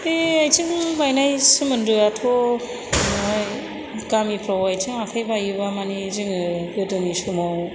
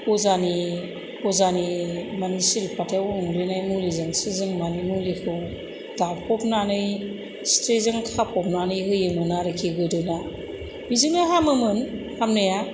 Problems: constant background noise